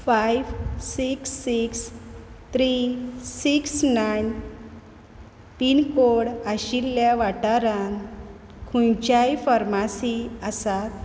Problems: background sounds at intervals